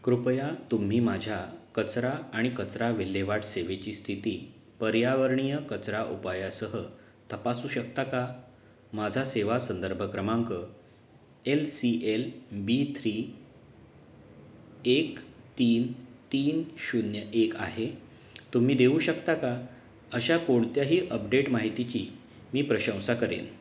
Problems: background sounds at intervals